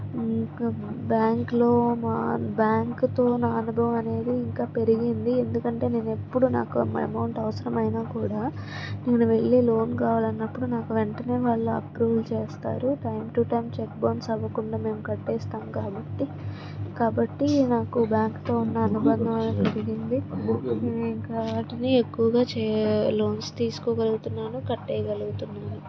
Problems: constant background noise, background conversations at intervals